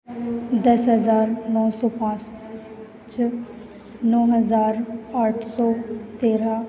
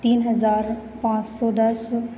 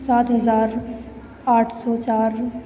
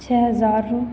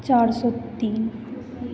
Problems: none marked